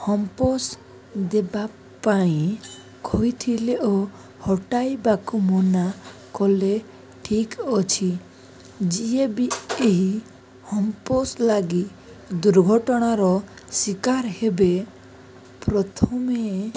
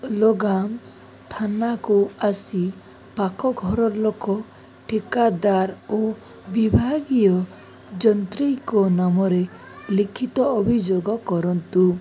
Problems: none marked